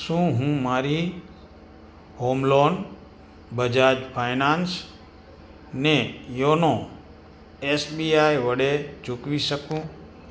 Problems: constant background noise